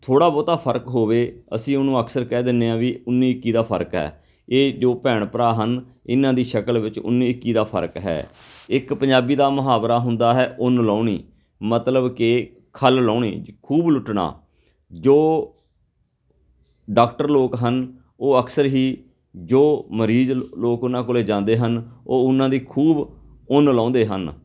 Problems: background sounds at intervals